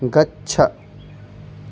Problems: constant background noise